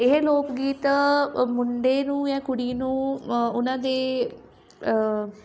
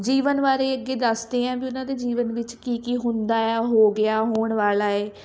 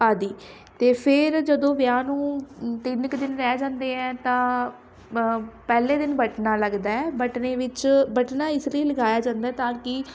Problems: none marked